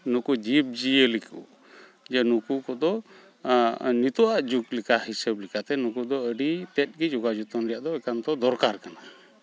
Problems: background sounds at intervals